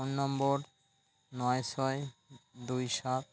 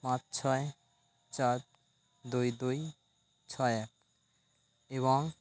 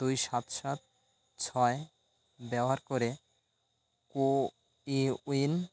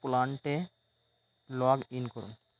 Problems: constant background noise